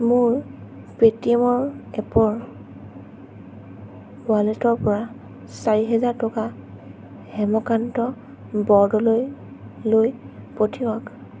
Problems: constant background noise